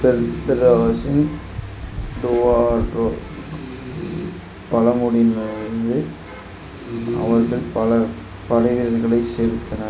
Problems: constant background noise